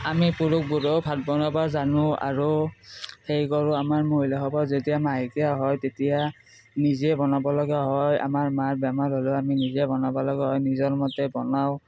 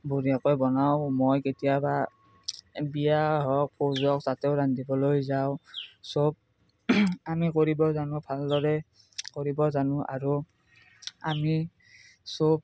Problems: none marked